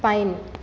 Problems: constant background noise